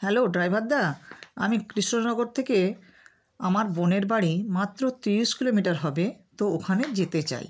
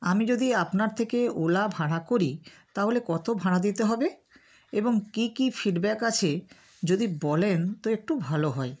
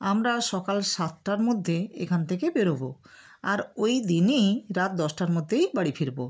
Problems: none marked